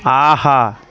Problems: background sounds at intervals